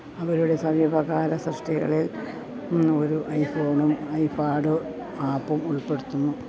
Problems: constant background noise, low volume